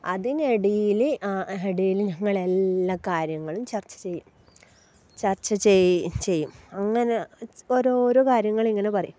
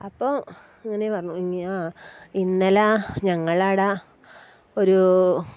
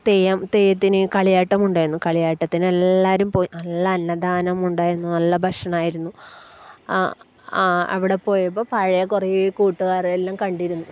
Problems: background sounds at intervals